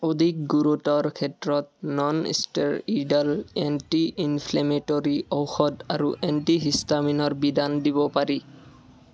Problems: continuous background conversations